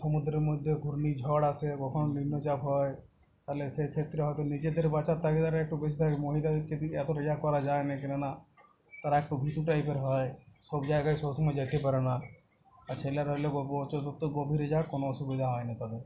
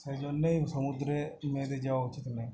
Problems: constant background noise